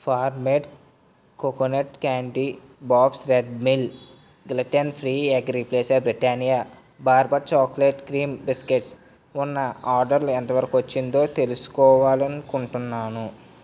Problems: none marked